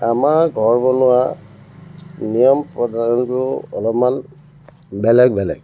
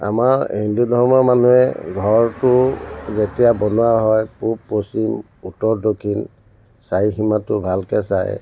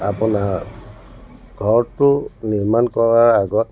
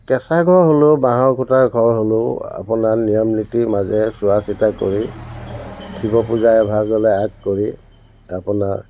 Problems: constant background noise, background conversations at intervals